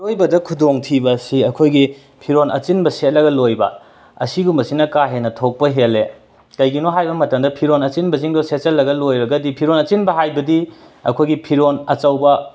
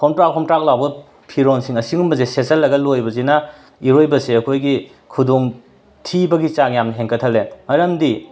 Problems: background sounds at intervals, background conversations at intervals